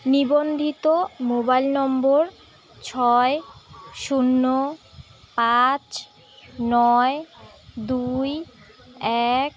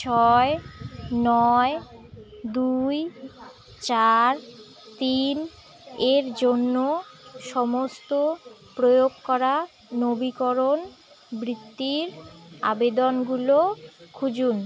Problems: constant background noise, continuous background conversations